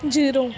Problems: background sounds at intervals